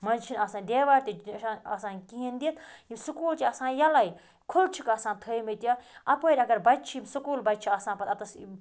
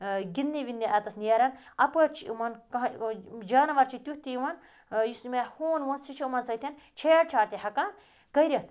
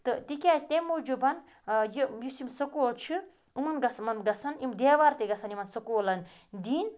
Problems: background sounds at intervals